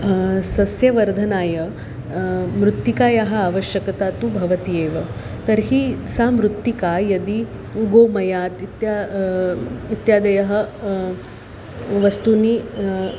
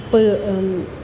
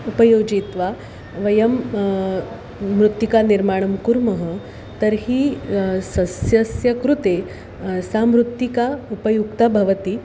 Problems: constant background noise